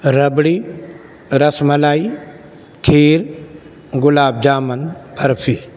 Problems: constant background noise